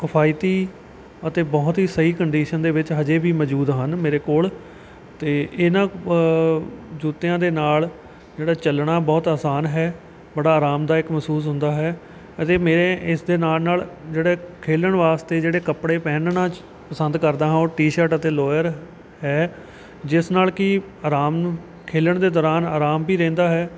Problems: none marked